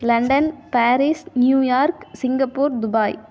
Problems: none marked